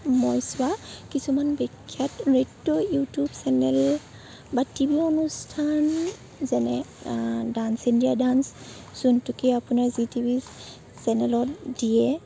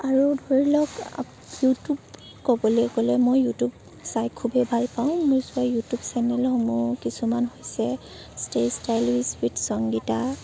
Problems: background sounds at intervals